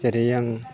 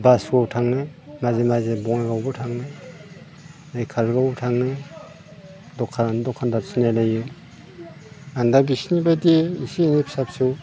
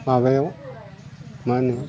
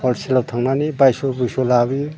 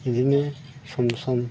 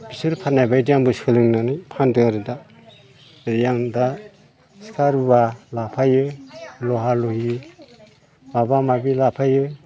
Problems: constant background noise